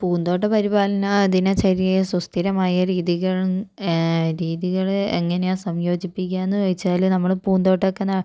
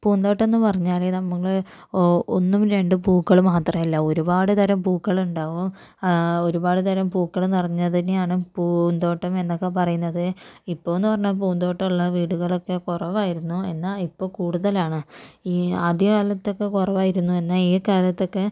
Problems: none marked